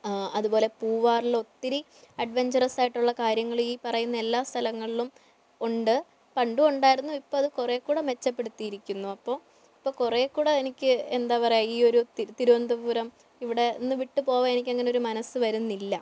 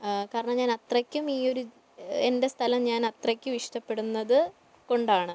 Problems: low volume